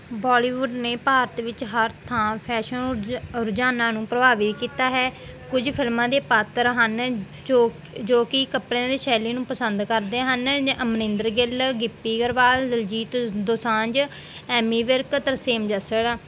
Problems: background sounds at intervals